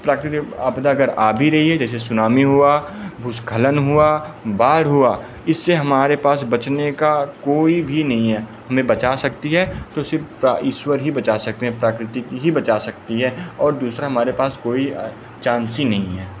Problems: none marked